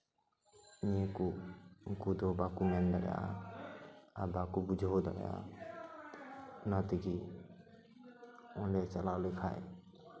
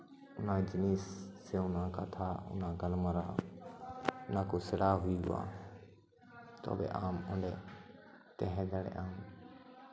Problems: none marked